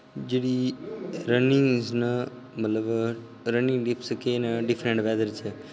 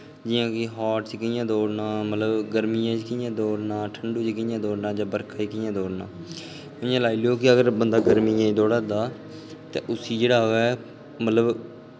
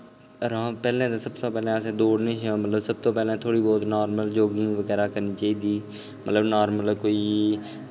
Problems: background sounds at intervals, echo